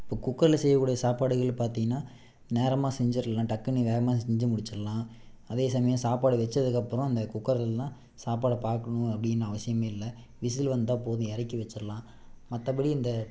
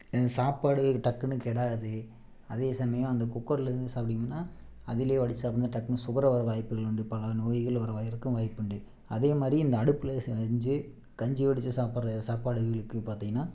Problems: constant background noise